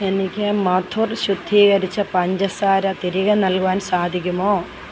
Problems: constant background noise